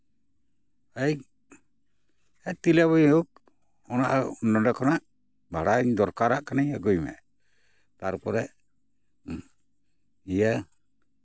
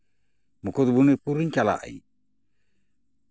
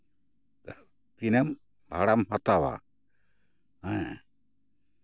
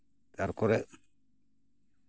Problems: background sounds at intervals